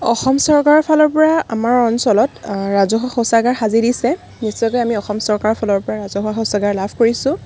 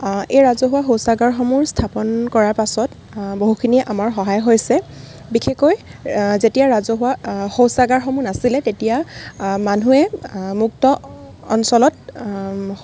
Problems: constant background noise